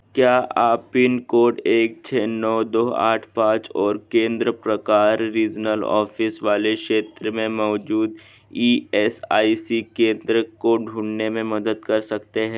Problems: none marked